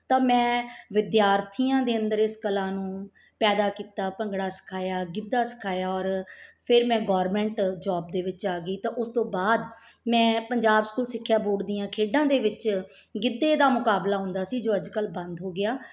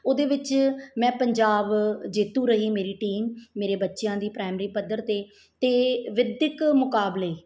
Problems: background sounds at intervals